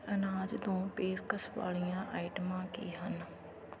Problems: background conversations at intervals